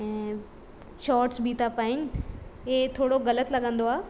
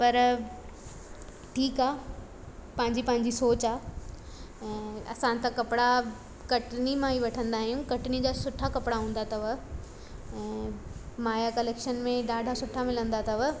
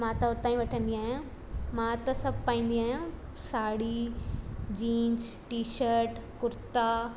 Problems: constant background noise